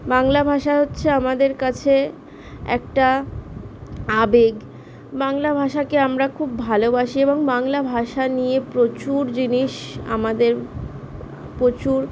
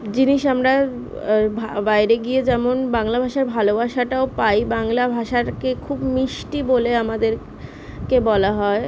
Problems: constant background noise